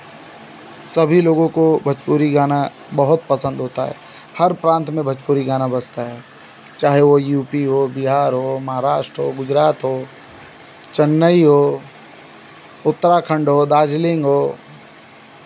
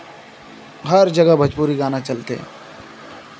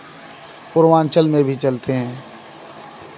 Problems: none marked